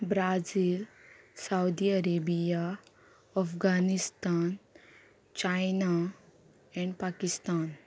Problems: background conversations at intervals